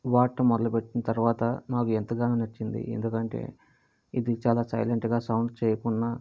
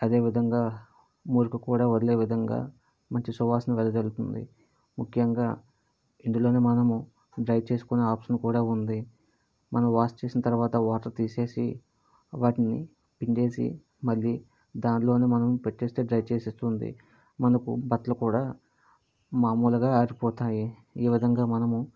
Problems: none marked